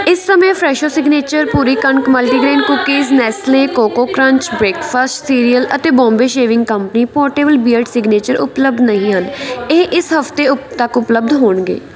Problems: continuous background conversations